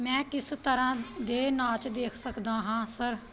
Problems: none marked